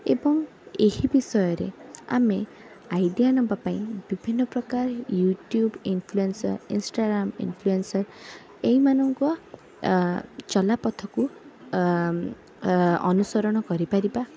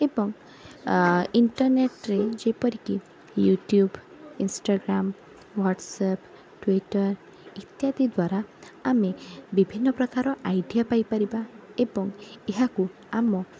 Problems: background sounds at intervals, background conversations at intervals